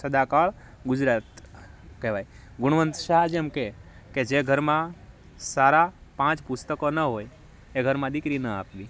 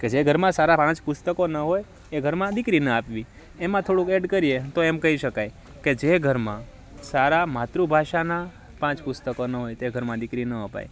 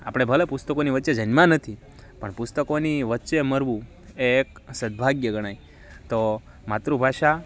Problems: none marked